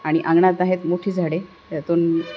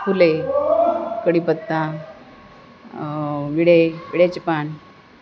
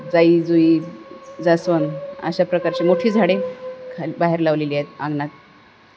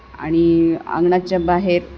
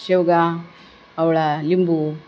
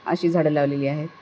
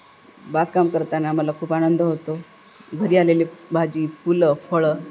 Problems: constant background noise, continuous background conversations